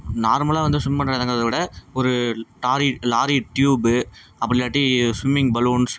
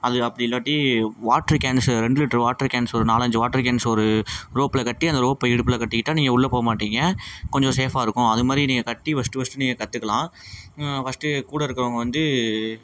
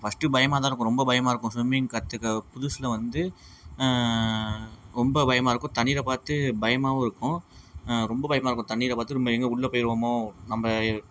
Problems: constant background noise